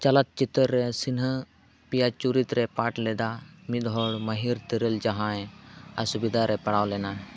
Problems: constant background noise